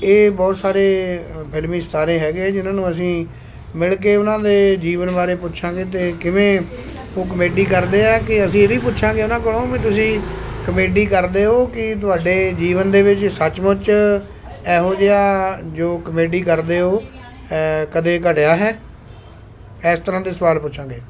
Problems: constant background noise